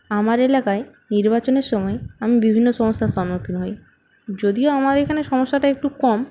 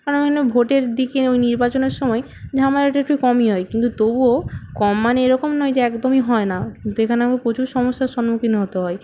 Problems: background sounds at intervals